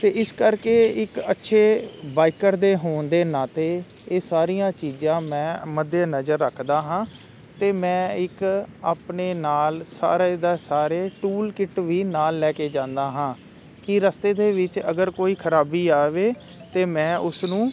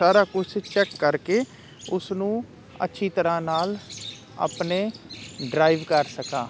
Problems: constant background noise